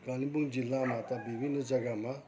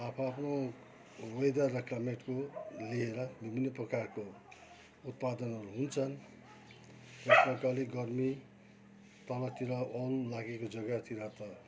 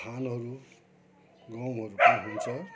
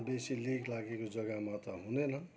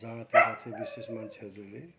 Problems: constant background noise